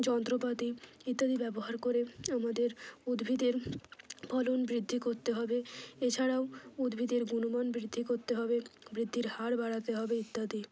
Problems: low volume